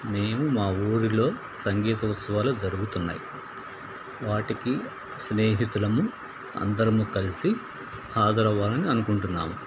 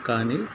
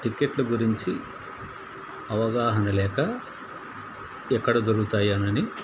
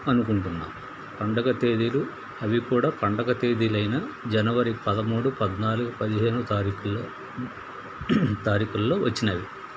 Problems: constant background noise